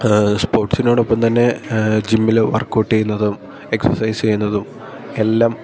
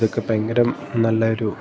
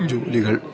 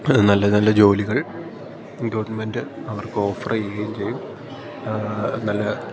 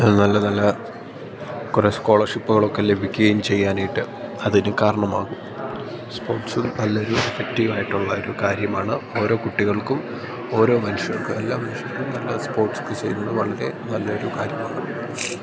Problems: constant background noise